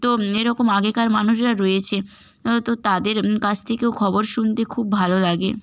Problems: none marked